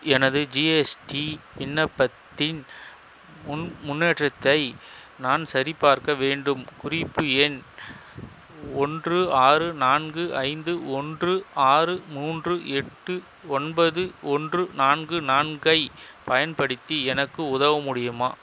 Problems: constant background noise